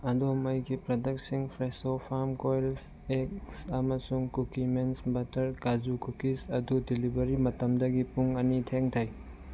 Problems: background sounds at intervals